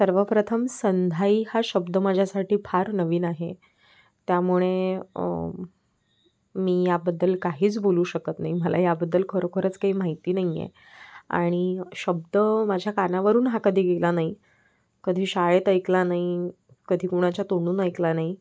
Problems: background sounds at intervals